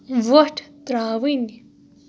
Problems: none marked